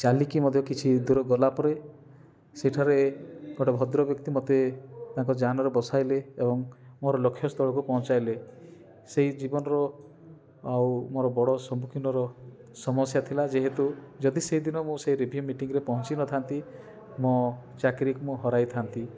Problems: constant background noise, continuous background conversations